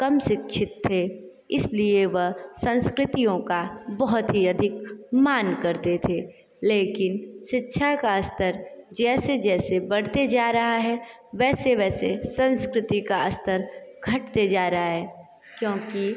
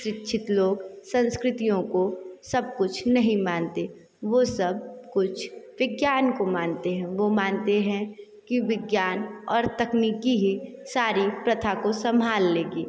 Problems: continuous background conversations